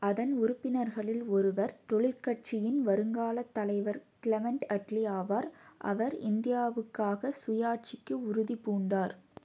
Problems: low volume